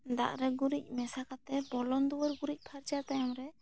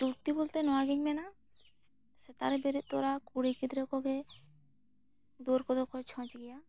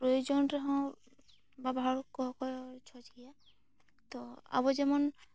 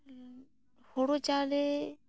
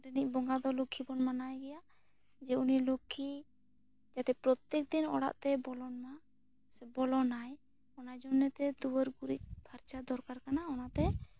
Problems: none marked